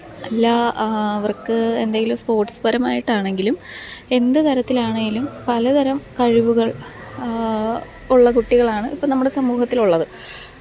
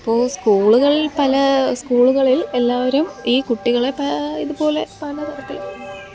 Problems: background sounds at intervals